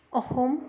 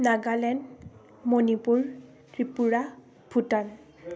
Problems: background conversations at intervals